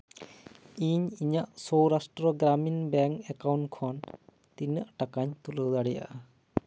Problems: background sounds at intervals